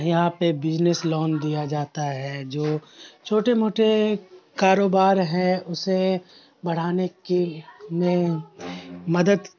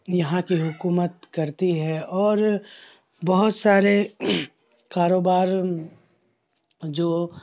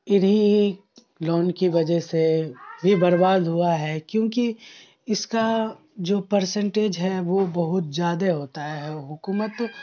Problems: constant background noise